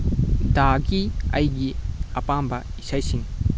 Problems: constant background noise